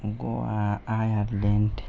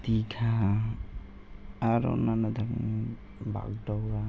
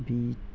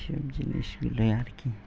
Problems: constant background noise